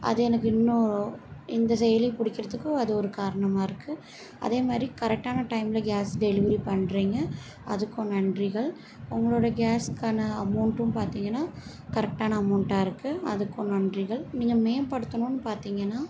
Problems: background sounds at intervals, background conversations at intervals